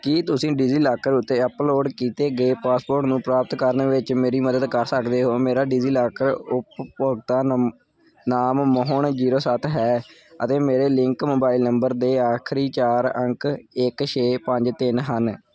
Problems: background sounds at intervals